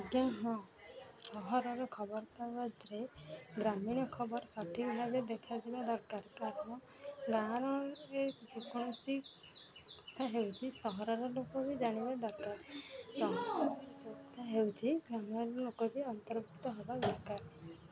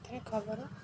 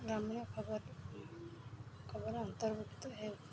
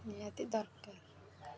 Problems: background sounds at intervals, background conversations at intervals